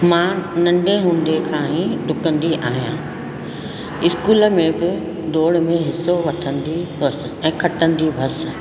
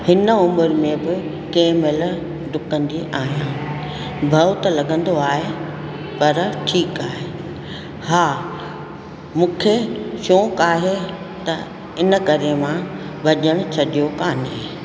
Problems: constant background noise, echo